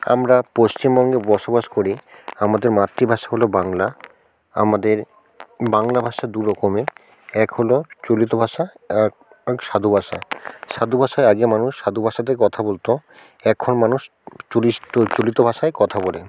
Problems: background conversations at intervals